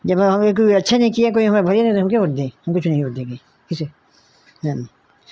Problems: none marked